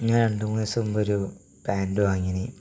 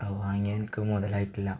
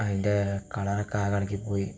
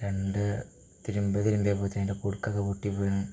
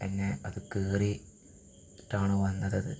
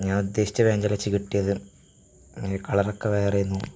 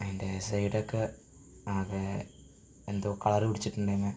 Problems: background sounds at intervals, low volume